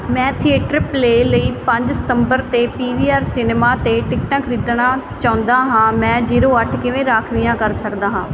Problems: none marked